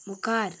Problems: background conversations at intervals